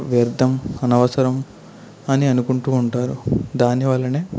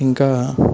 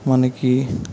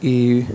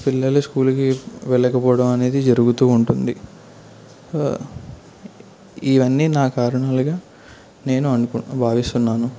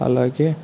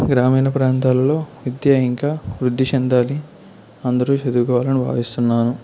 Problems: constant background noise